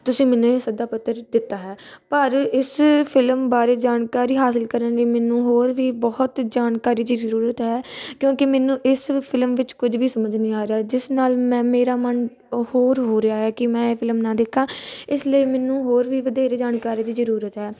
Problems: constant background noise